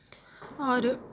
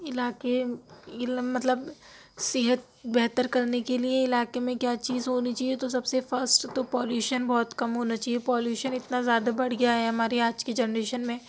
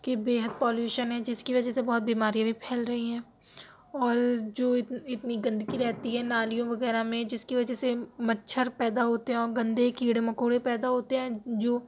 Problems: none marked